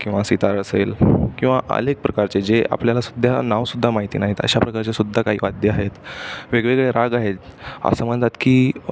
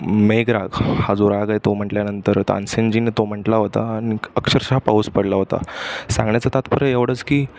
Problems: constant background noise, background conversations at intervals